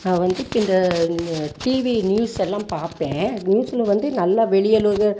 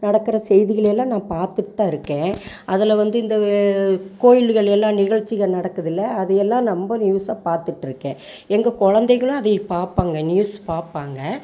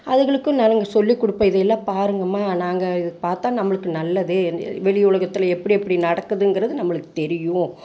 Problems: constant background noise